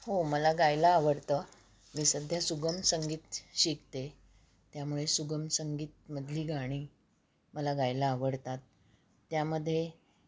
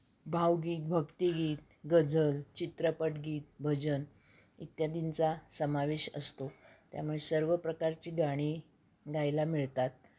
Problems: background sounds at intervals